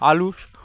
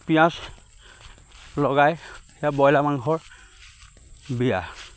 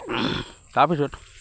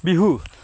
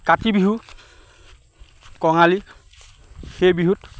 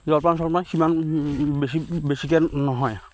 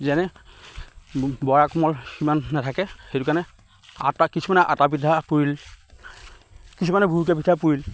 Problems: background sounds at intervals